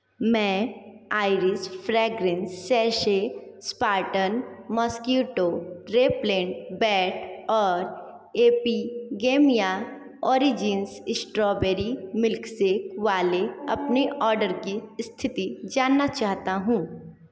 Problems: none marked